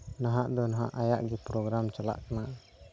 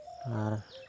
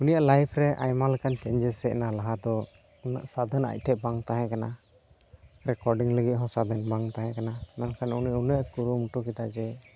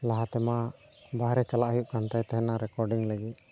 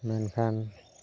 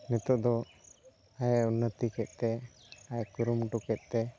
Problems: none marked